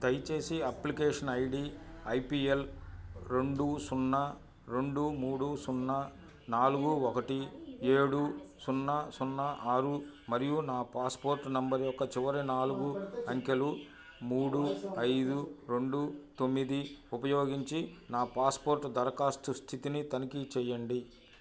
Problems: background conversations at intervals